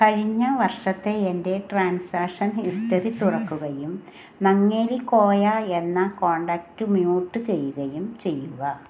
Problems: background sounds at intervals